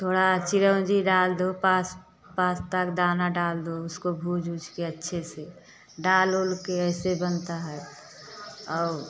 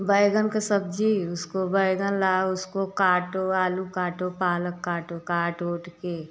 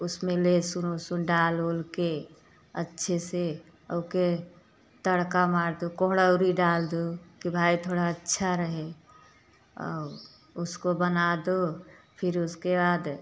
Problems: constant background noise